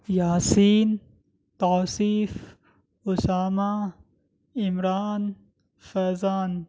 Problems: none marked